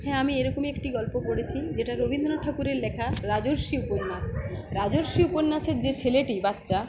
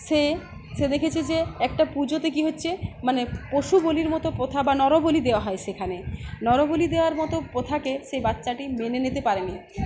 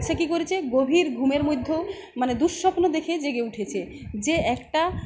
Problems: none marked